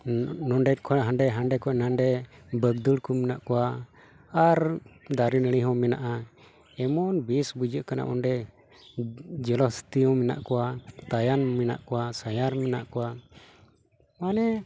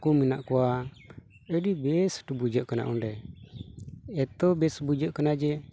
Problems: constant background noise